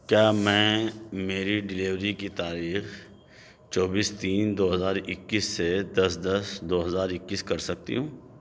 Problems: background sounds at intervals